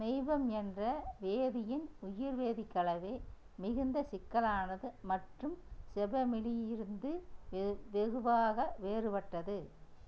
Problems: low volume